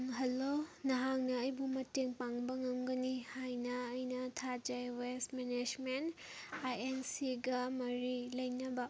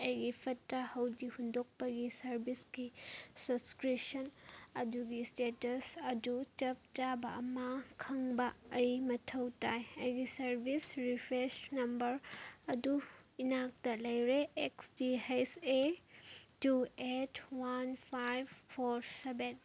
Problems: background sounds at intervals